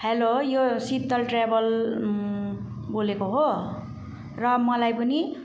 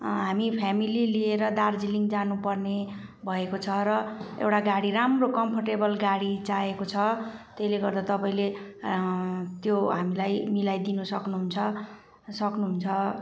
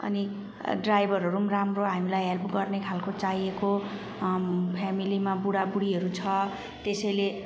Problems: background sounds at intervals